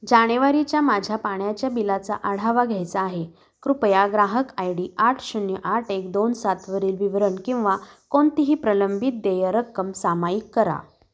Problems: none marked